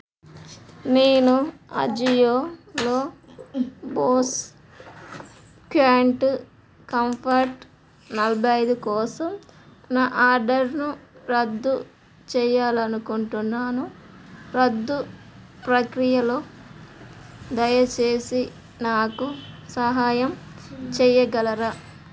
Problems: background sounds at intervals